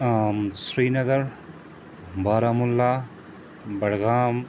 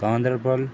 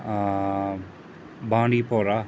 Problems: constant background noise